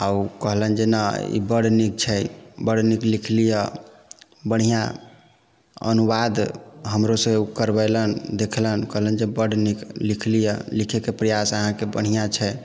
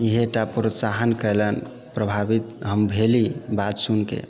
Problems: background sounds at intervals